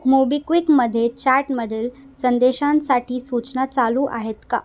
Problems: background sounds at intervals